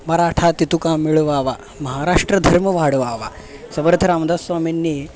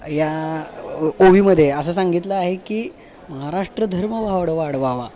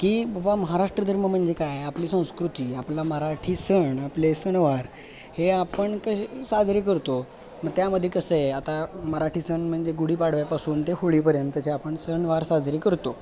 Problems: constant background noise, continuous background conversations